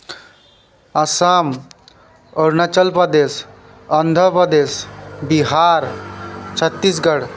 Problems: background sounds at intervals